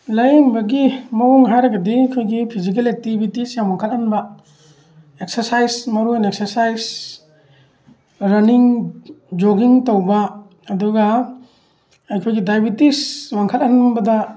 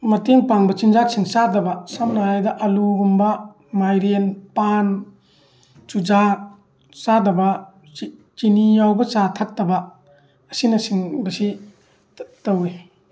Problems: none marked